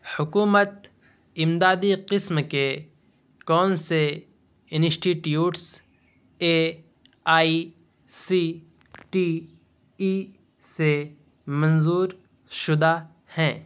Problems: constant background noise